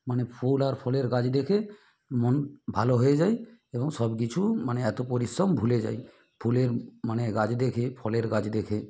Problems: none marked